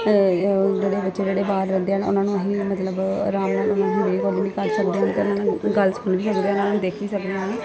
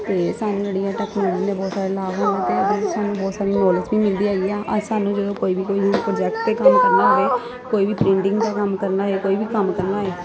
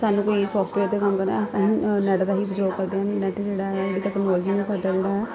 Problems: background sounds at intervals